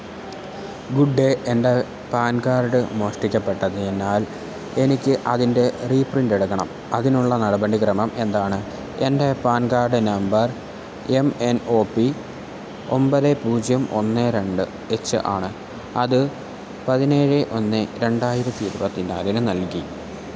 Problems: constant background noise